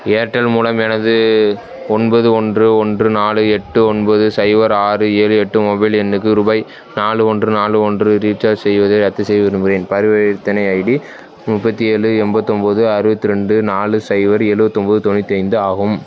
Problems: background sounds at intervals